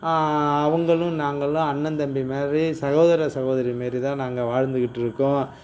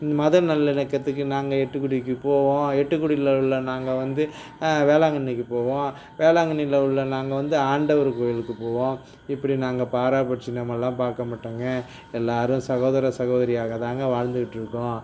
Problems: none marked